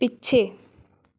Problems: background conversations at intervals